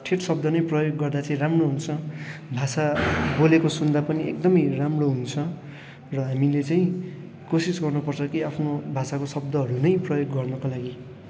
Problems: none marked